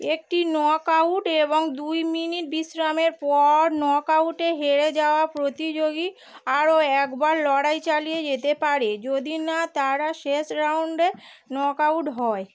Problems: constant background noise